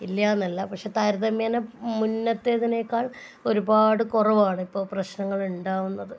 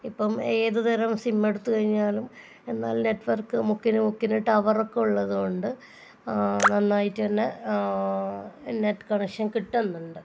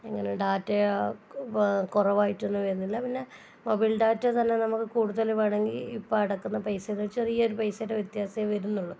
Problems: none marked